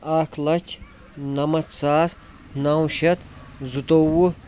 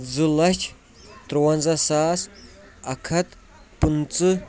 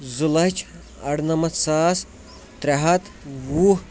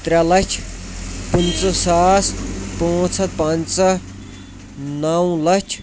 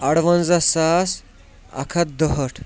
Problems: constant background noise, background conversations at intervals